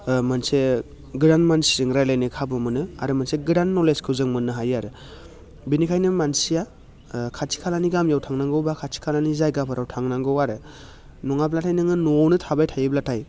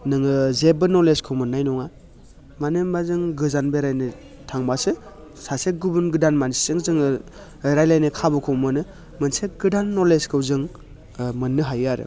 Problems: constant background noise